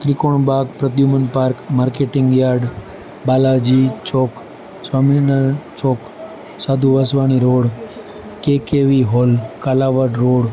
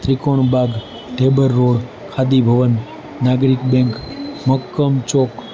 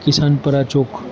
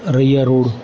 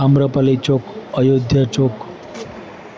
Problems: constant background noise, continuous background conversations